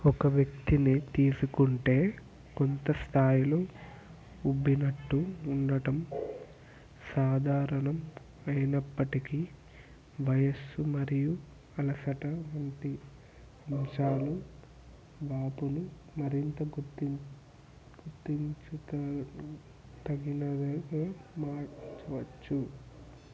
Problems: constant background noise